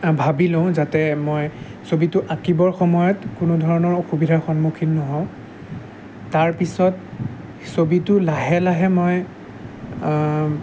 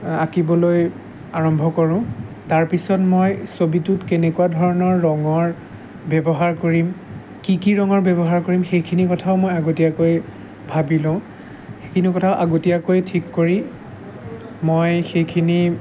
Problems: background sounds at intervals